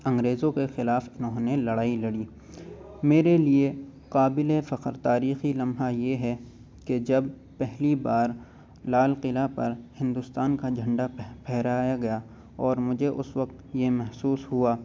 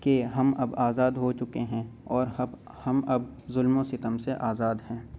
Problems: constant background noise